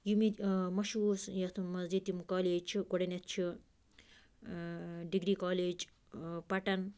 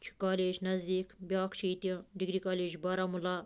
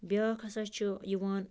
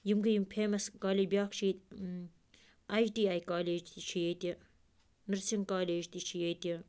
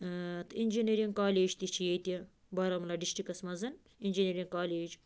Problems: none marked